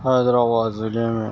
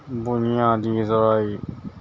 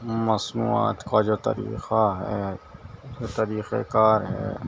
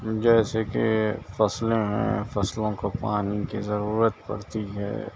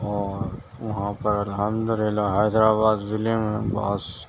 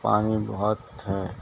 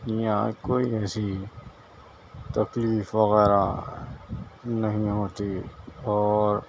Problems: constant background noise, low volume